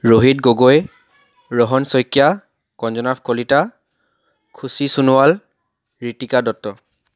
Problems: background sounds at intervals